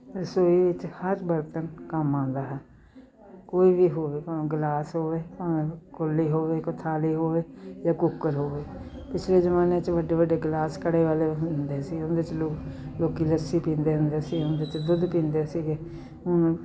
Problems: none marked